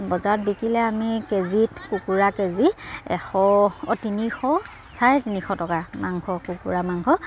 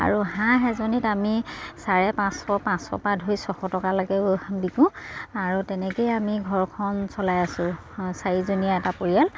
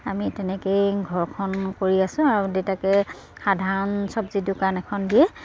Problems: none marked